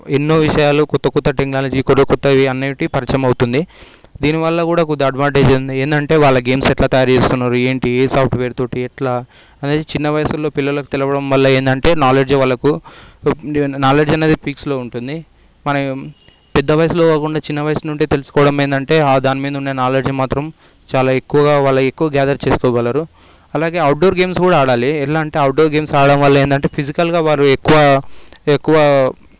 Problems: background sounds at intervals